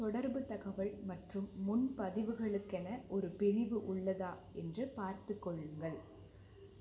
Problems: low volume